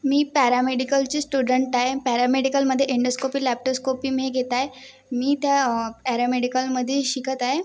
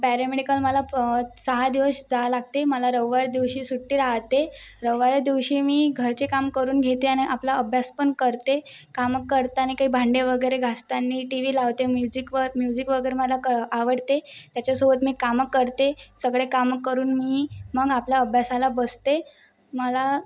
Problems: background sounds at intervals